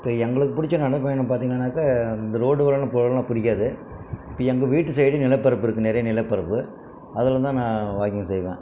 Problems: background sounds at intervals